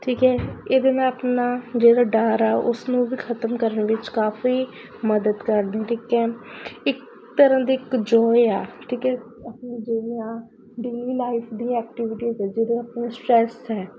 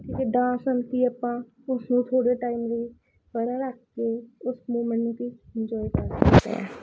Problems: constant background noise